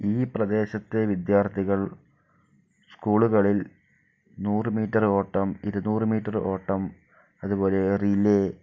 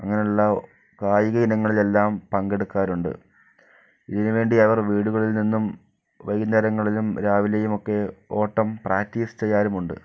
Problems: none marked